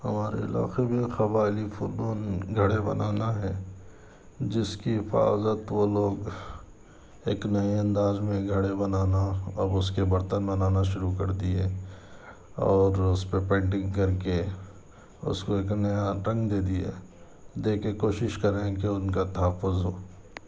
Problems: none marked